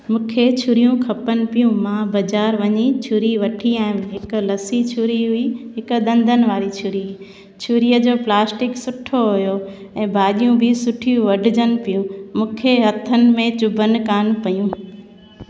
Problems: constant background noise, echo